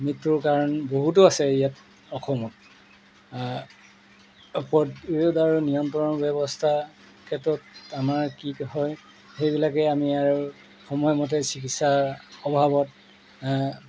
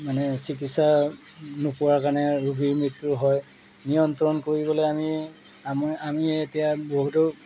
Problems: background sounds at intervals